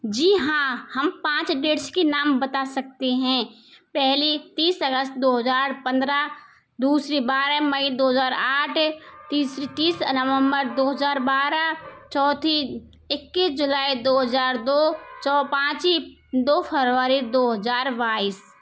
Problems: background sounds at intervals